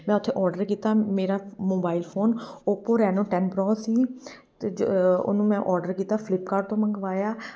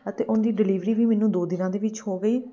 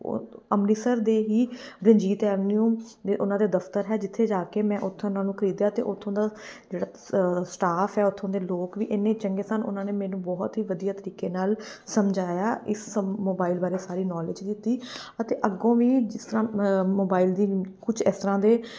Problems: background sounds at intervals